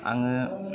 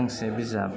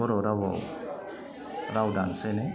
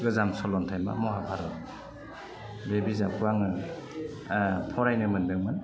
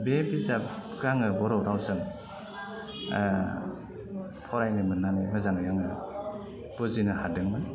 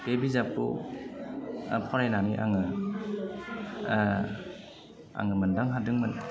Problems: constant background noise